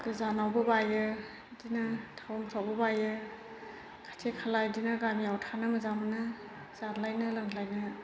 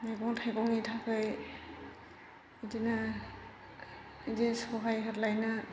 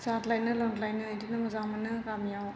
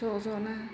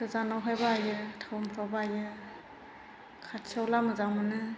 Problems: constant background noise